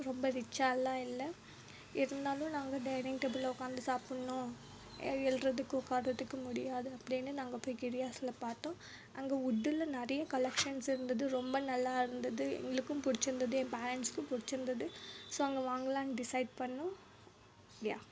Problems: background sounds at intervals